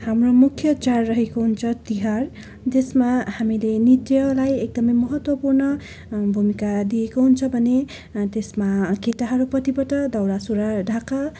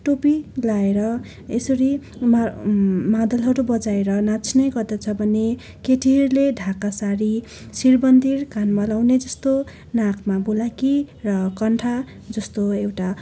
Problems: constant background noise, continuous background conversations